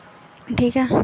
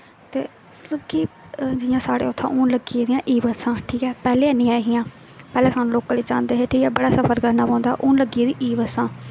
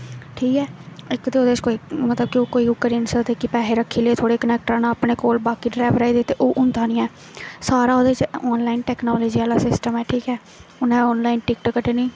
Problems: constant background noise